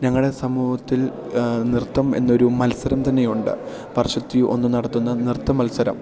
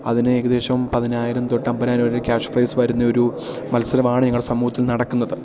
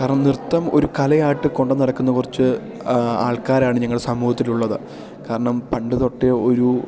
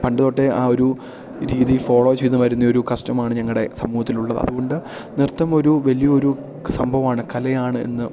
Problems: none marked